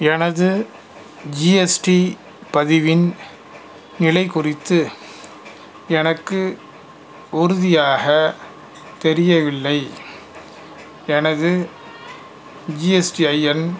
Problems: background sounds at intervals